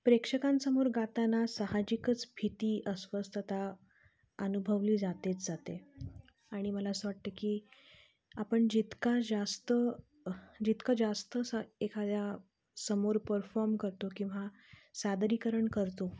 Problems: constant background noise, low volume